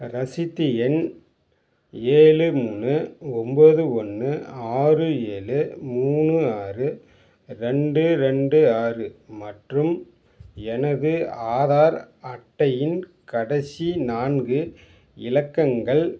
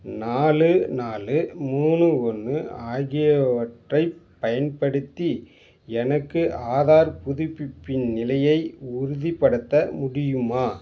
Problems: background sounds at intervals